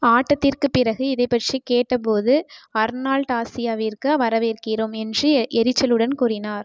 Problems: background sounds at intervals